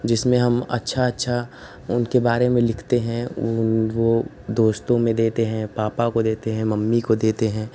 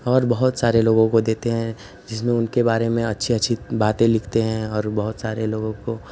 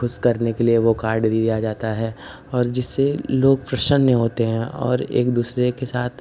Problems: constant background noise